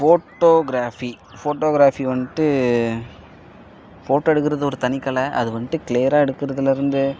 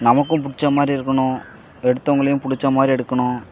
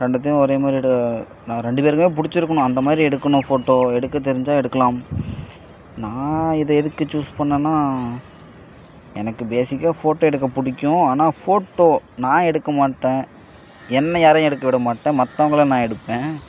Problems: background sounds at intervals